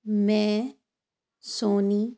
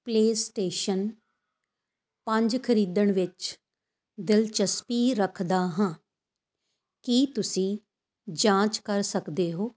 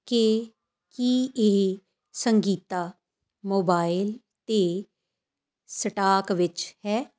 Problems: none marked